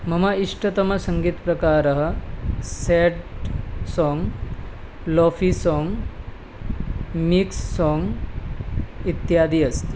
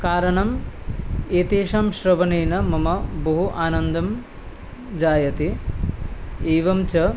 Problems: none marked